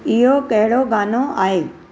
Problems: none marked